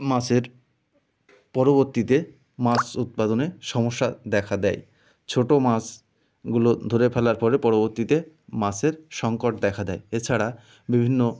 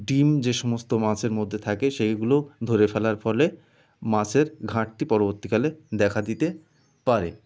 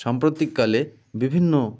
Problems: constant background noise